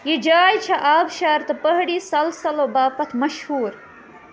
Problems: constant background noise